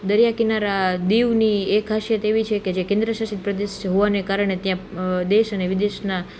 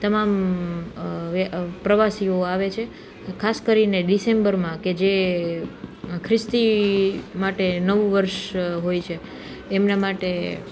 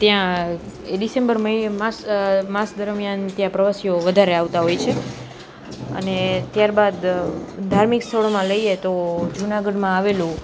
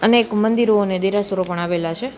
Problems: none marked